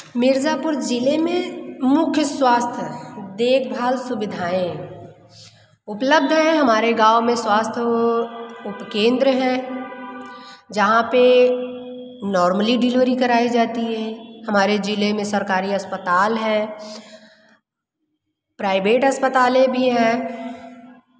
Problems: constant background noise, echo